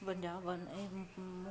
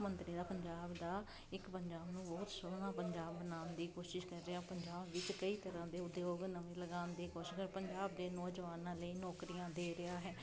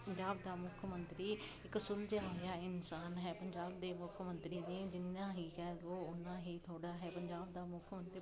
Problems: none marked